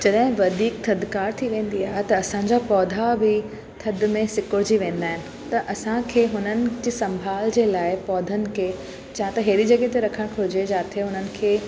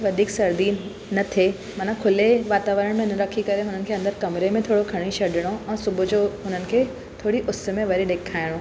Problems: constant background noise, echo